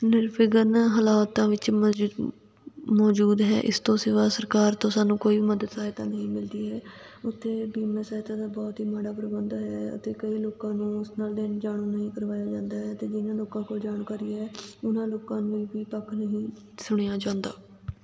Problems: constant background noise